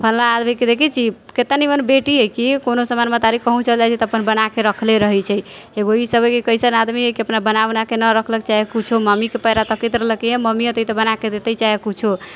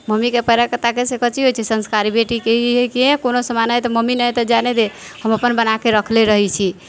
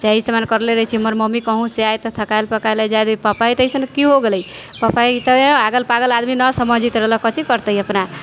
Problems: background sounds at intervals